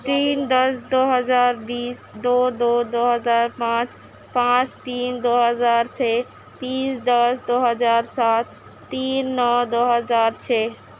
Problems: constant background noise